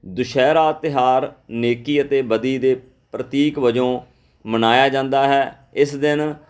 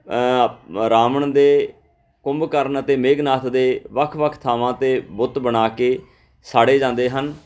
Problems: background sounds at intervals, background conversations at intervals